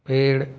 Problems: none marked